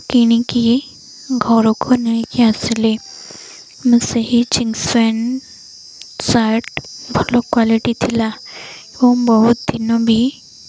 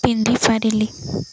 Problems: none marked